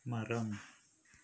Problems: low volume